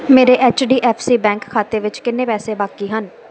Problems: constant background noise